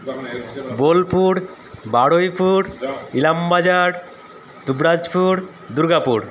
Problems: continuous background conversations